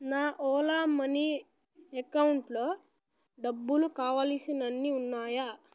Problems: low volume